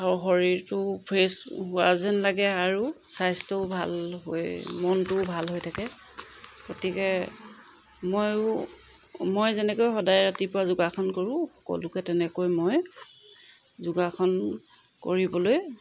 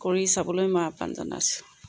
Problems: background sounds at intervals